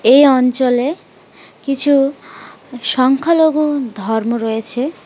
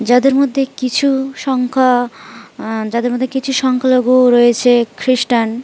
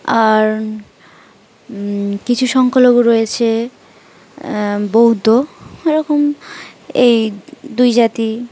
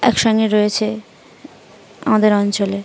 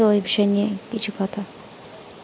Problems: none marked